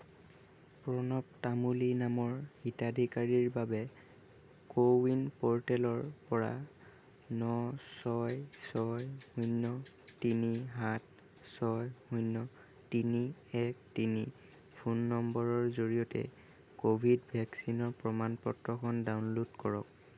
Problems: none marked